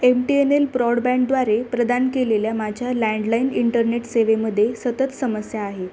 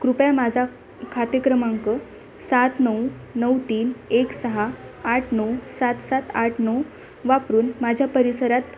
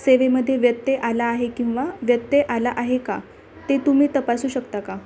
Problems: constant background noise, continuous background conversations